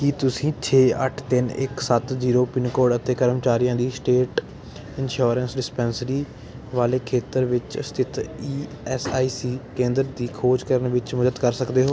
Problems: none marked